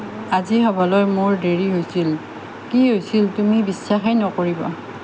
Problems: constant background noise